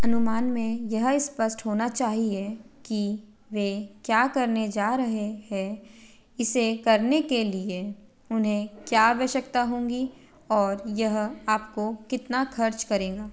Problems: background sounds at intervals